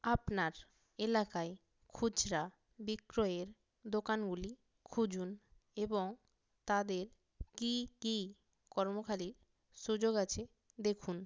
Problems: none marked